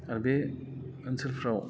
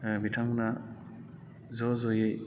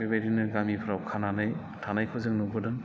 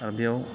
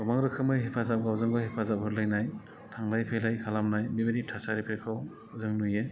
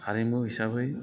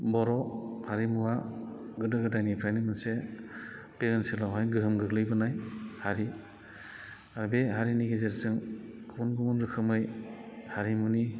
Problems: constant background noise